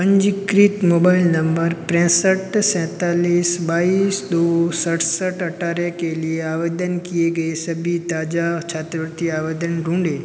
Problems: constant background noise